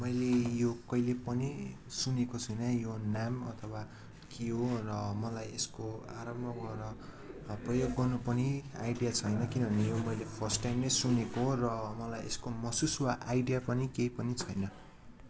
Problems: constant background noise